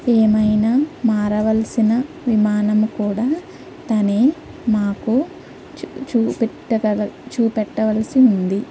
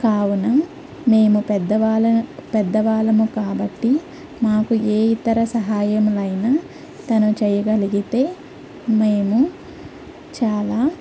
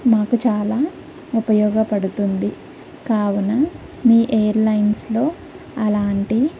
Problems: low volume